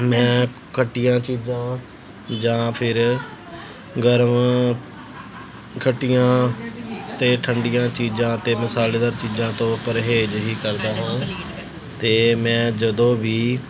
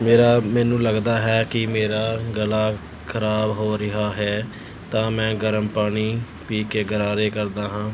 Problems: none marked